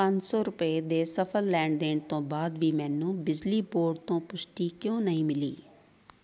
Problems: background conversations at intervals